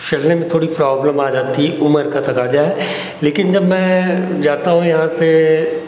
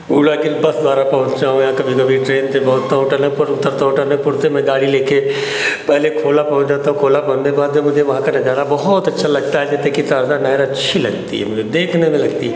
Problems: constant background noise